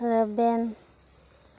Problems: none marked